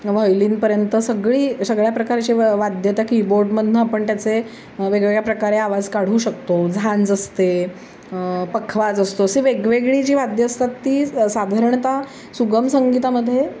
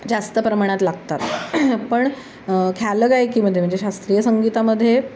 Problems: constant background noise